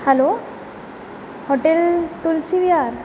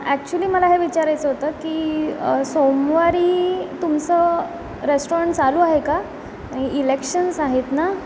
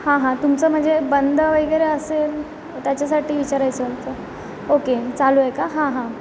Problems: none marked